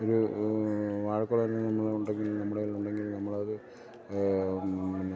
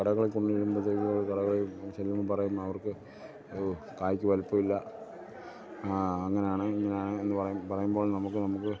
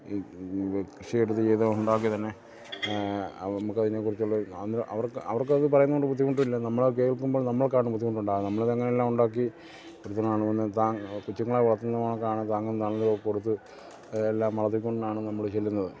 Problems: low volume